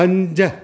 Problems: constant background noise